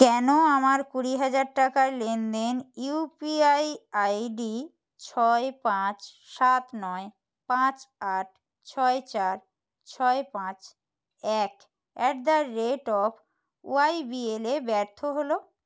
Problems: none marked